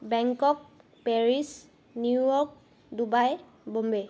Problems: background sounds at intervals